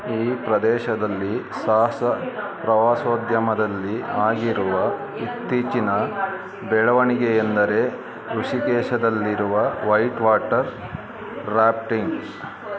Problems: continuous background conversations